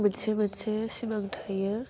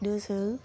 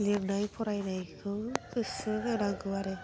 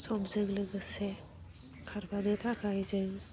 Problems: low volume